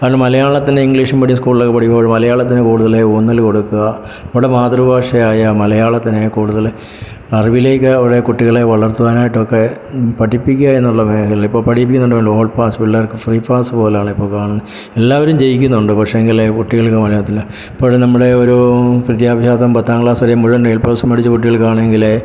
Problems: background sounds at intervals